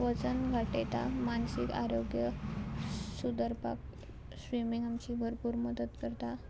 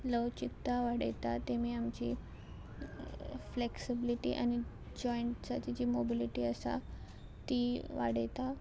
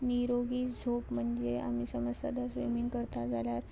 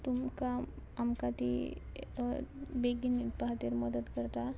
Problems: constant background noise